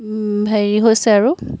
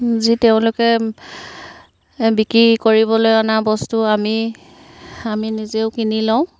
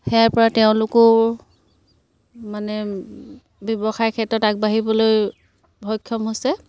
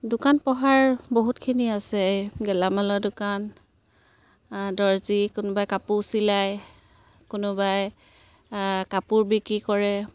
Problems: none marked